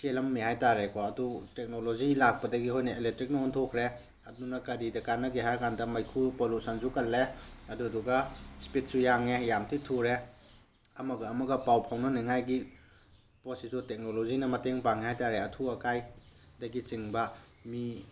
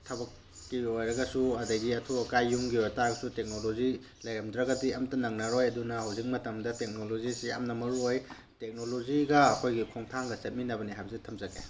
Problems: background sounds at intervals